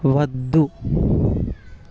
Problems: constant background noise